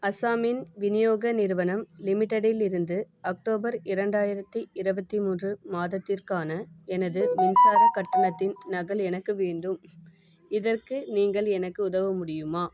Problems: background sounds at intervals